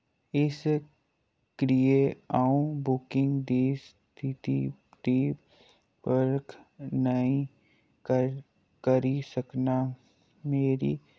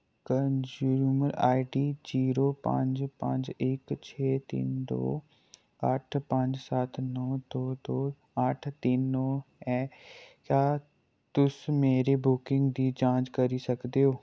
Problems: low volume